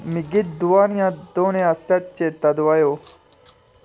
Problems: constant background noise